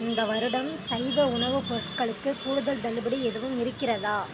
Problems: constant background noise